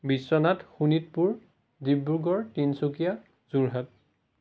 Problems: none marked